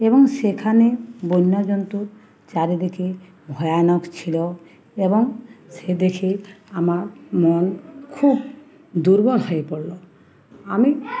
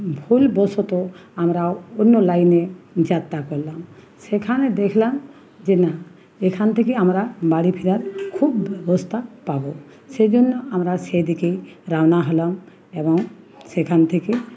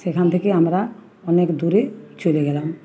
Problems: constant background noise, continuous background conversations